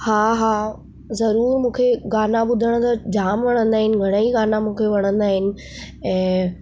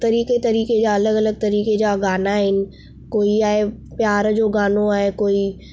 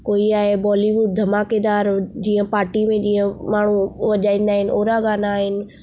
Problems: none marked